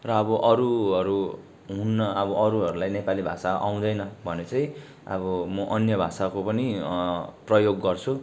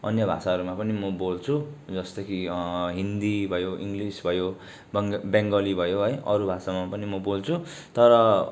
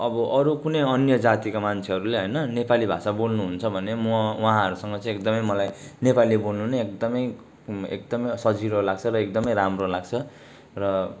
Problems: background sounds at intervals